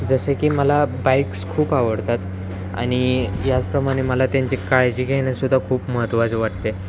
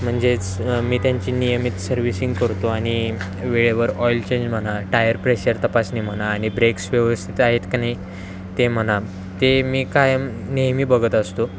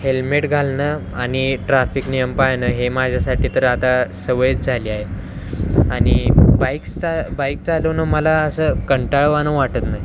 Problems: constant background noise, continuous background conversations